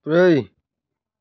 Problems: none marked